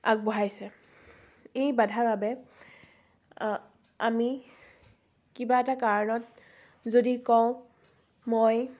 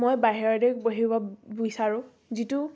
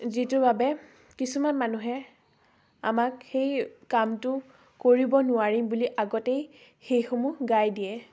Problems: background sounds at intervals, background conversations at intervals